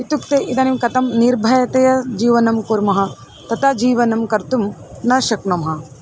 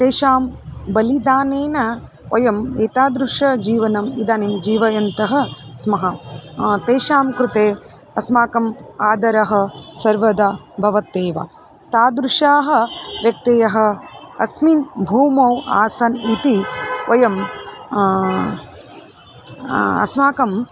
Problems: constant background noise, background conversations at intervals